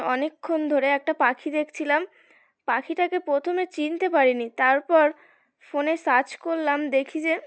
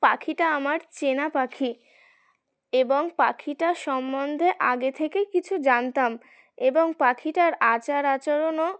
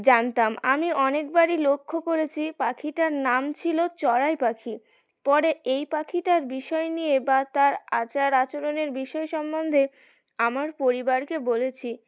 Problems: background sounds at intervals, continuous background conversations